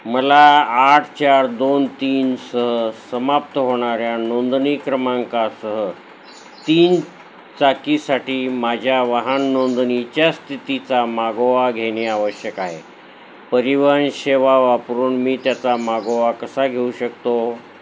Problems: constant background noise